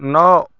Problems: constant background noise